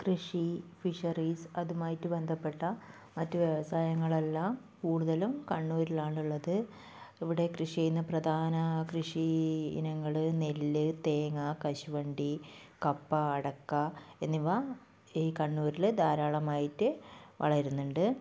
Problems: none marked